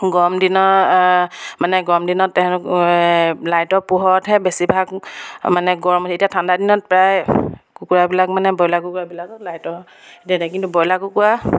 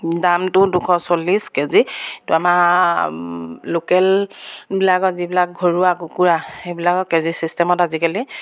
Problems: background sounds at intervals